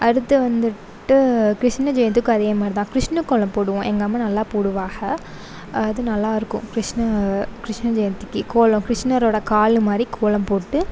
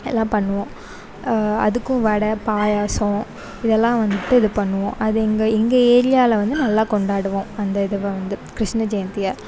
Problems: none marked